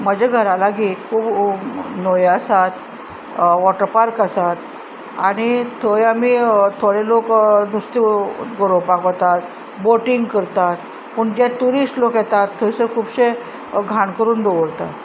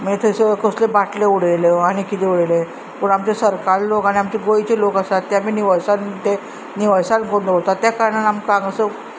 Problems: constant background noise